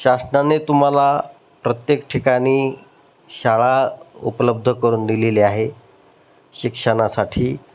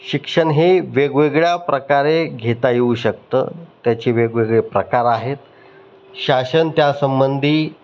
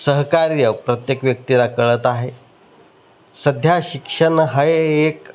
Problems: none marked